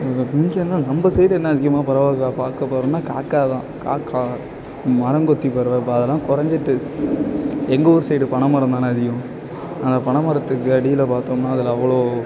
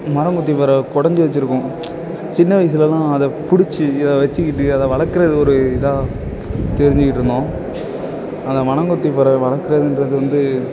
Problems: background sounds at intervals